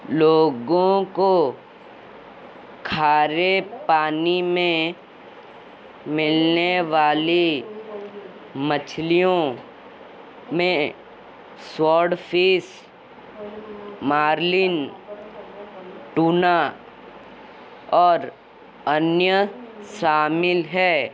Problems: constant background noise